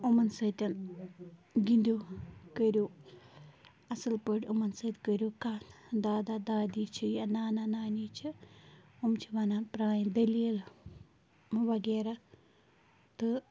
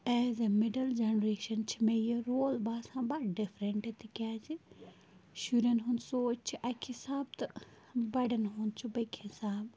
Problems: constant background noise